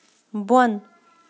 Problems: none marked